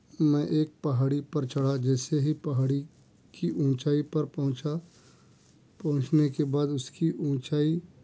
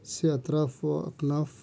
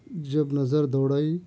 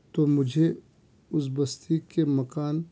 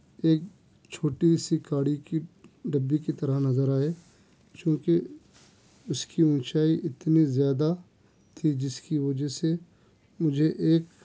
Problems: none marked